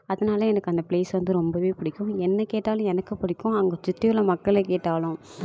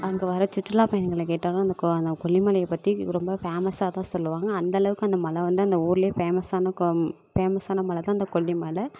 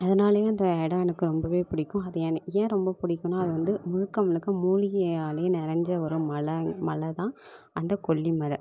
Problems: constant background noise